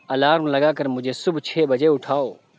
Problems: none marked